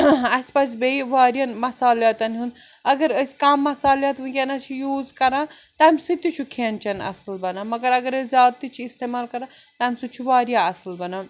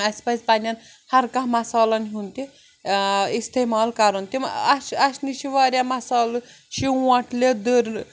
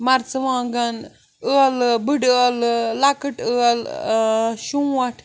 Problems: none marked